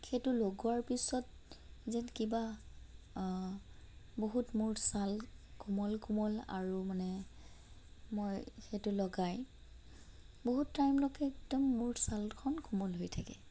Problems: constant background noise, low volume